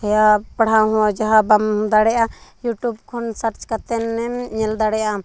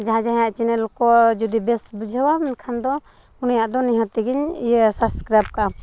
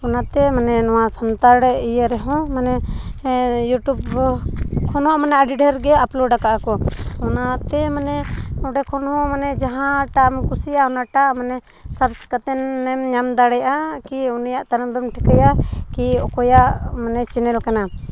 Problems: background sounds at intervals